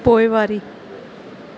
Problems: none marked